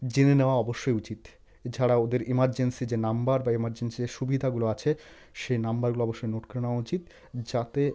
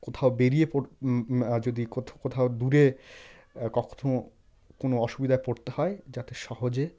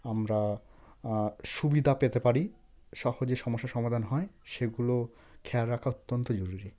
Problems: none marked